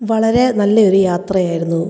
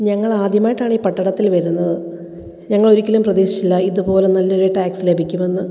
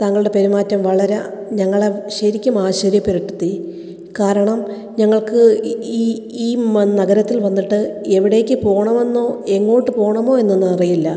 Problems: echo